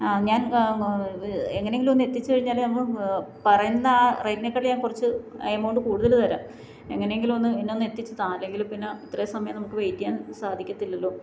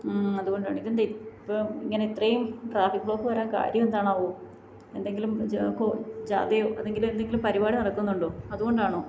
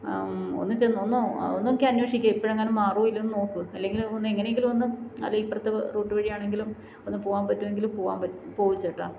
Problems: low volume